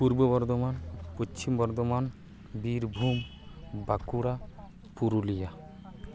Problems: constant background noise, continuous background conversations